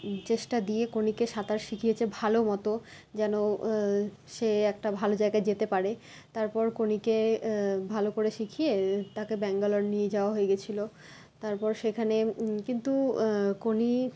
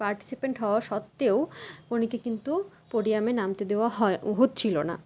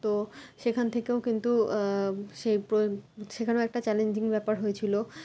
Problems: constant background noise